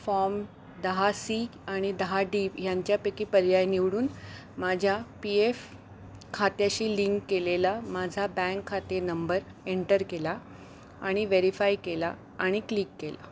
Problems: constant background noise